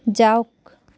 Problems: none marked